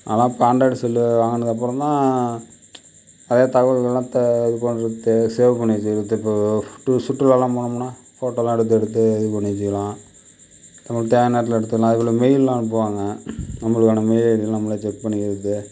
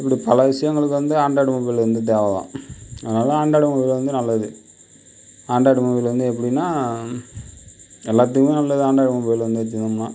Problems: none marked